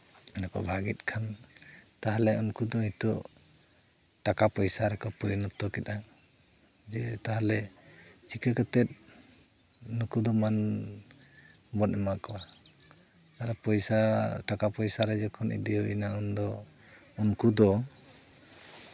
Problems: none marked